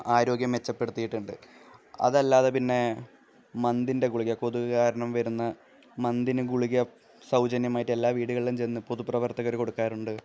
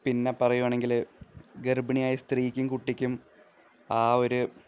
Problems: low volume